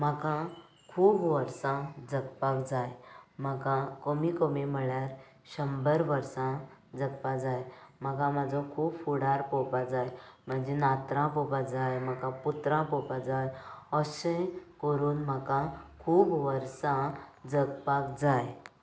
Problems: none marked